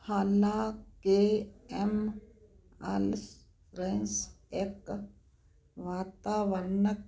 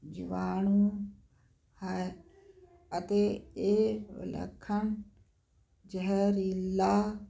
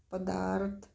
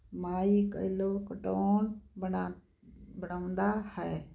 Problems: none marked